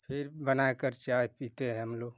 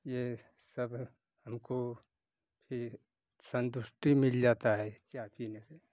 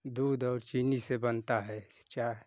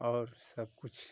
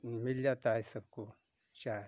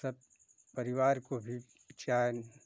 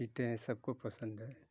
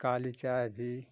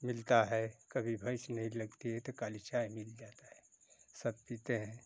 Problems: constant background noise